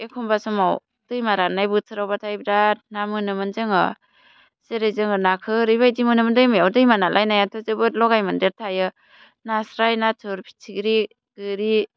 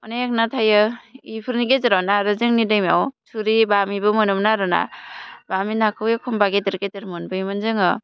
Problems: none marked